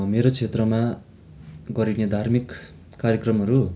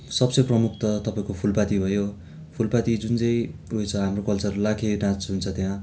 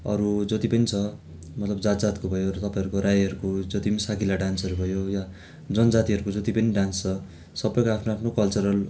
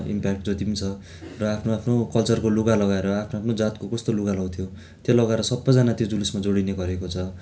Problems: constant background noise